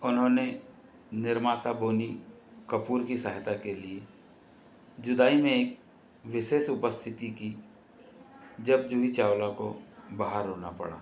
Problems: constant background noise